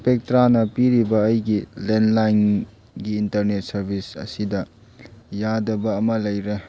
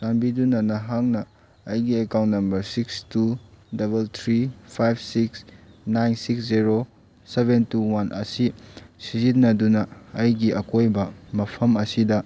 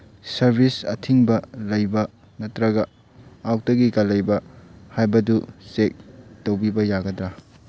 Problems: background sounds at intervals